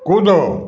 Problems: none marked